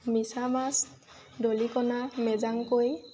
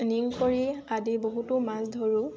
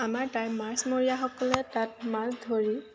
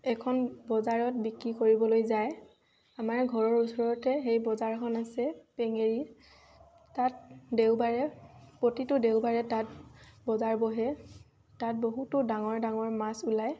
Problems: constant background noise, background conversations at intervals